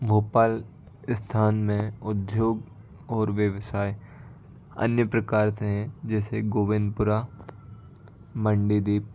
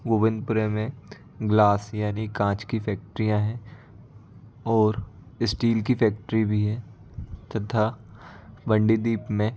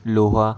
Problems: constant background noise